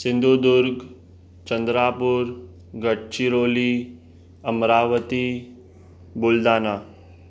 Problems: constant background noise